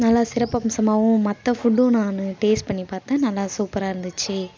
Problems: constant background noise, background conversations at intervals